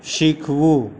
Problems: constant background noise